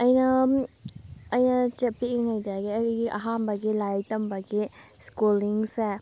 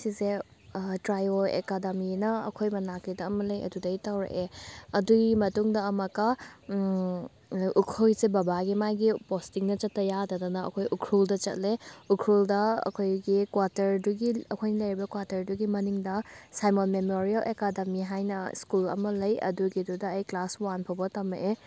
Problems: background sounds at intervals, background conversations at intervals